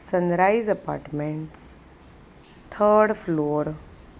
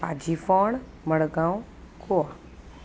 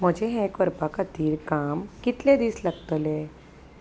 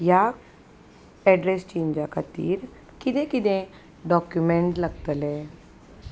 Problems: none marked